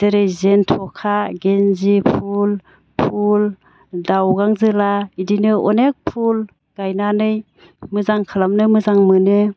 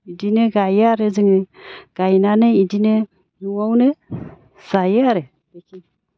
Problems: none marked